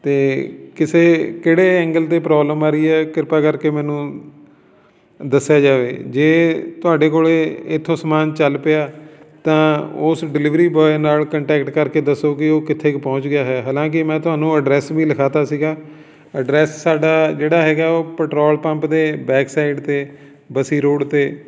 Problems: continuous background conversations